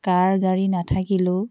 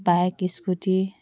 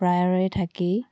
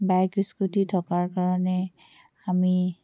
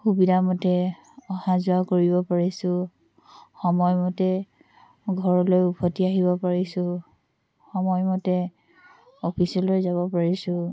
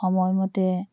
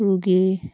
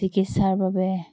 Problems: background conversations at intervals